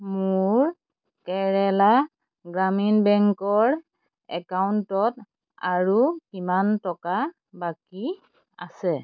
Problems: constant background noise